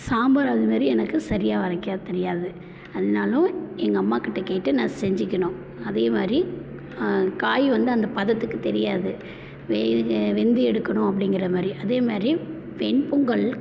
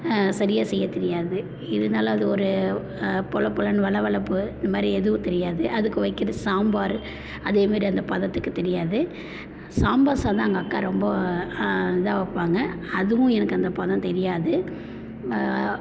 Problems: constant background noise